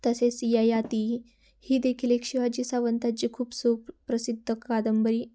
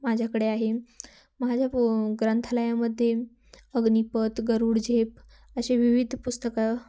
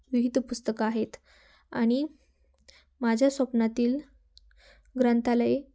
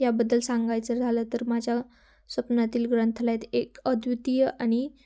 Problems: background sounds at intervals